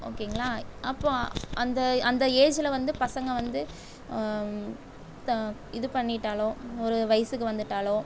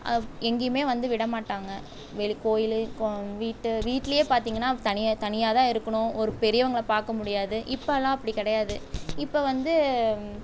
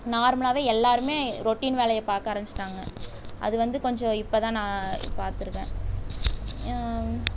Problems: background sounds at intervals